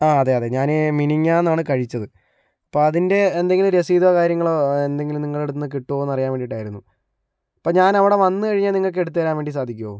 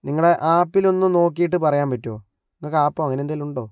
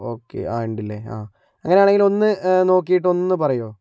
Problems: low volume